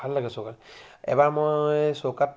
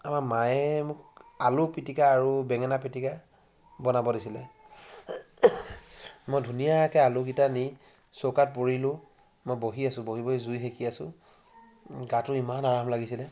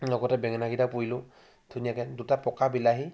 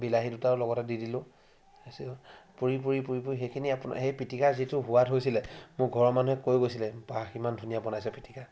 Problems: constant background noise